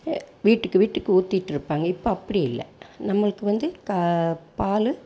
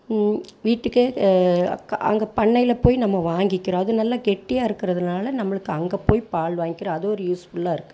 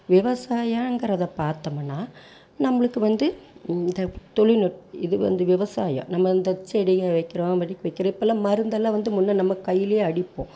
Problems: background sounds at intervals